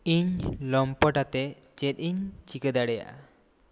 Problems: constant background noise